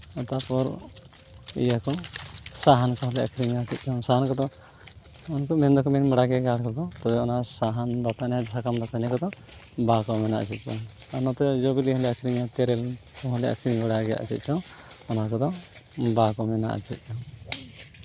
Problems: constant background noise